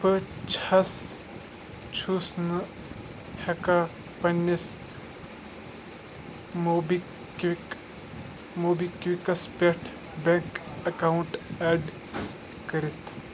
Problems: constant background noise